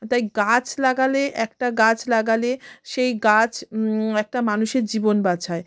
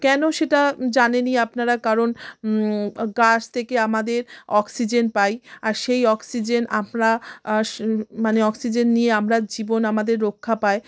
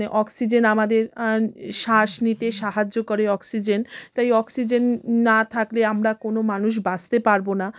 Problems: constant background noise